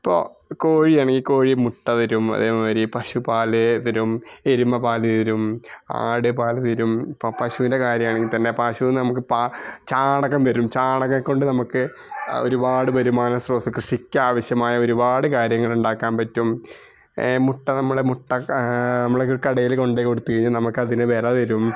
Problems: background sounds at intervals